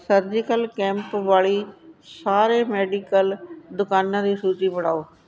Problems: constant background noise